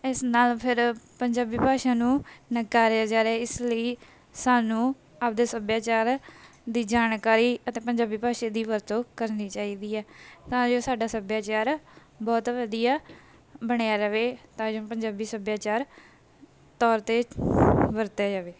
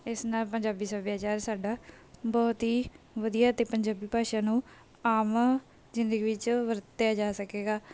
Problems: background sounds at intervals